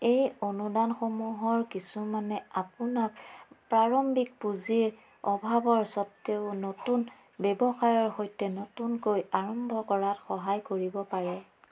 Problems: constant background noise